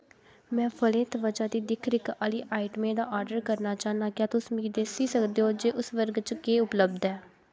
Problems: background sounds at intervals